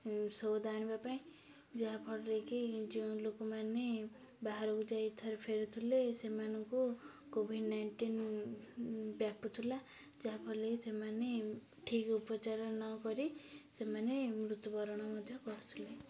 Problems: low volume